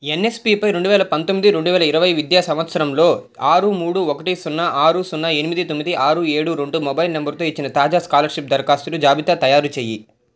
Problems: none marked